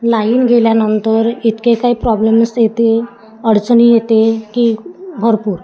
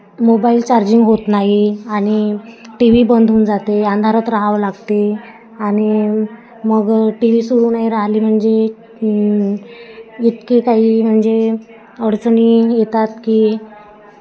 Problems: constant background noise, continuous background conversations